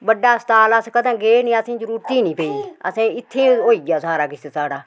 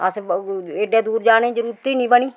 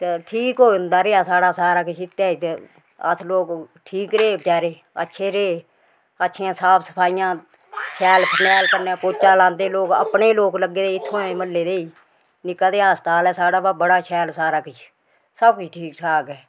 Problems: background sounds at intervals